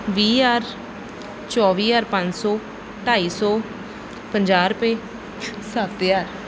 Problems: background sounds at intervals